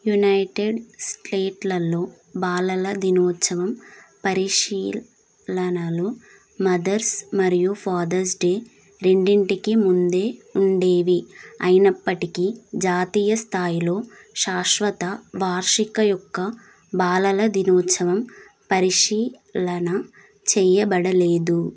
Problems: constant background noise